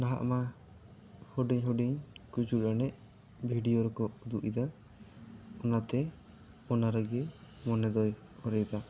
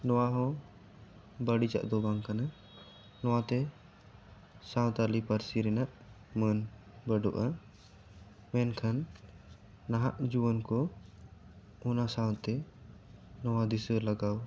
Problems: none marked